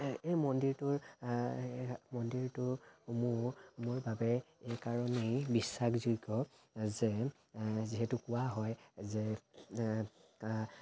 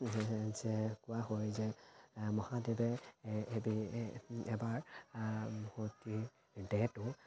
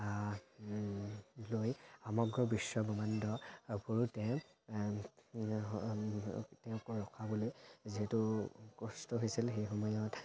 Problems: constant background noise, background conversations at intervals